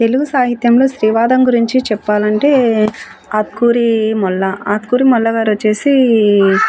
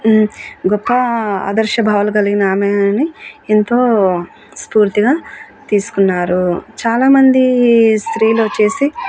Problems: continuous background conversations